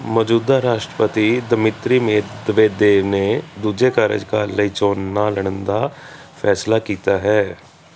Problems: constant background noise